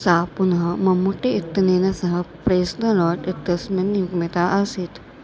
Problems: none marked